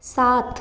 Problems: none marked